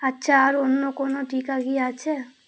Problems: background sounds at intervals